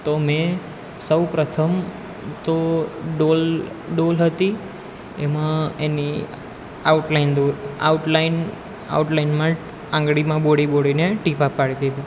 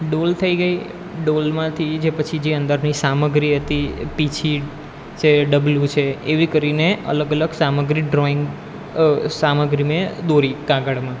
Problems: background sounds at intervals